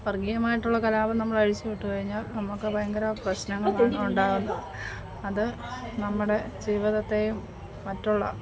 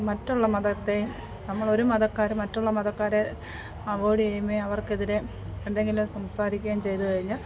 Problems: constant background noise, background conversations at intervals, low volume